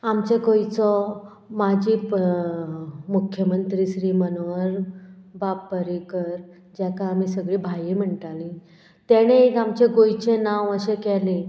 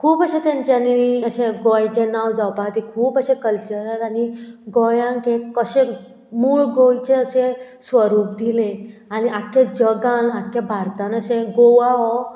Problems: background sounds at intervals